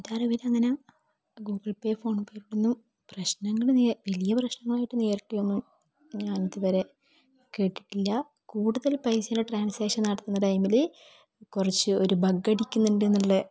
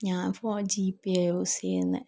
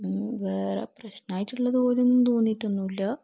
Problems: low volume